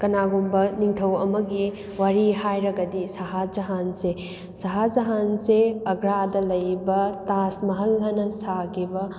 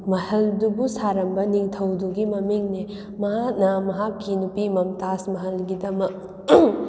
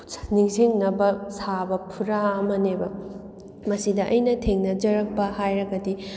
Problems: background sounds at intervals